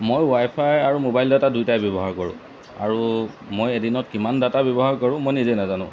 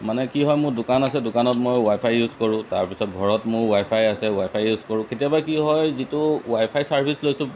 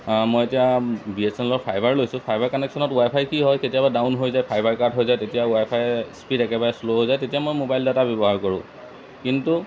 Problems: constant background noise